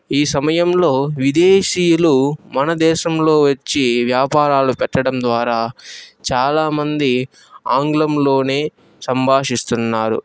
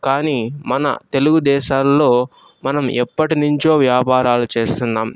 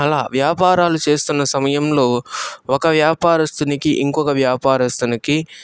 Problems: background sounds at intervals, background conversations at intervals